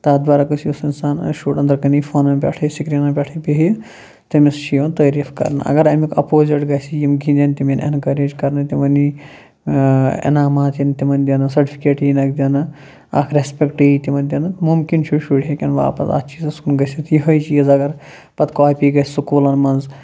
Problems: low volume